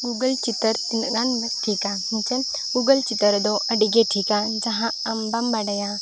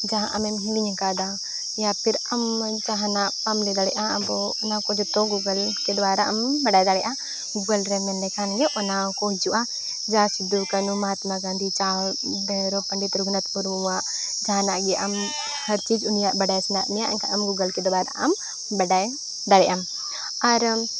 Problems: constant background noise